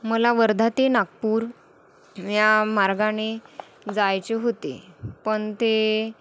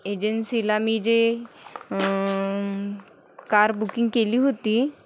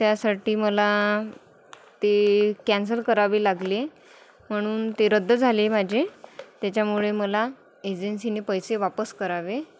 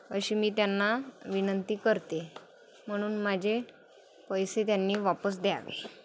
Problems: none marked